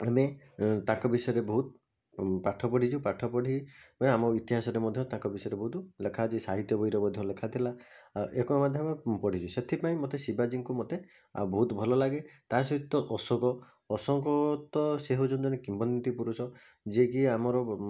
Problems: constant background noise